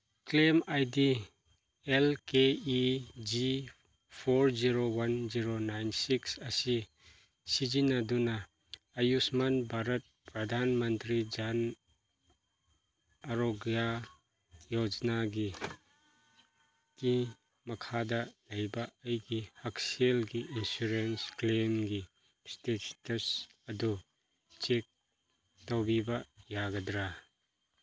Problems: none marked